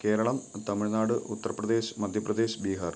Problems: none marked